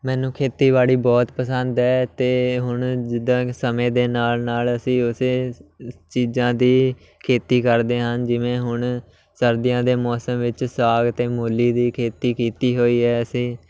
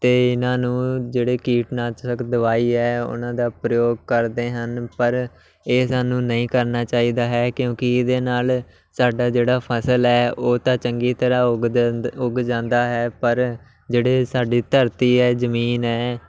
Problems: constant background noise